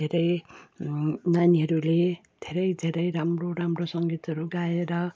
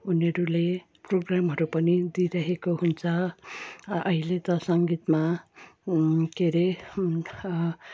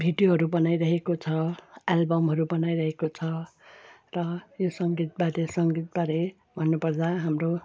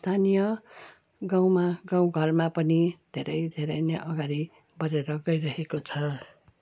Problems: background sounds at intervals